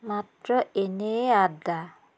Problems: constant background noise